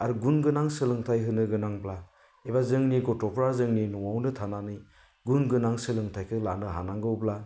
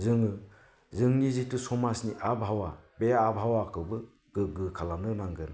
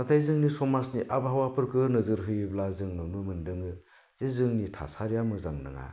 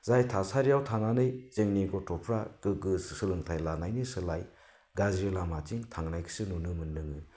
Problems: none marked